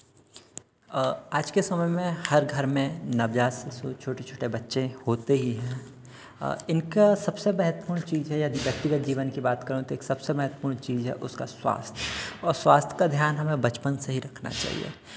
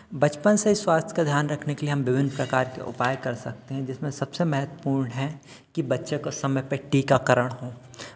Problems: background sounds at intervals